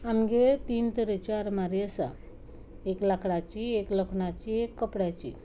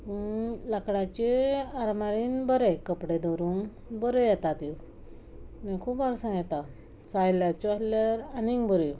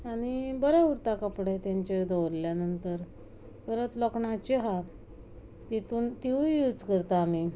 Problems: constant background noise